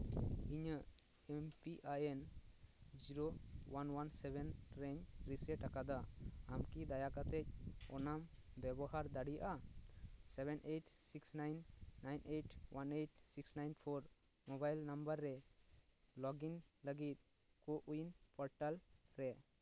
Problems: background sounds at intervals